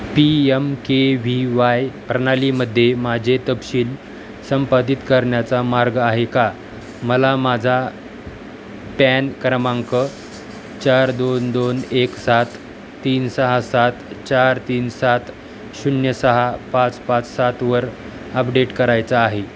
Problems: constant background noise